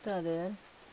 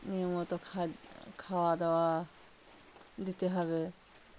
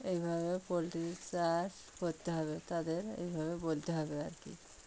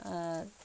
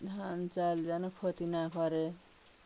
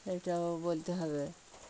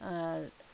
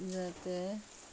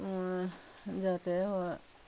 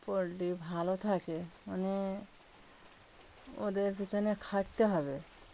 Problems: constant background noise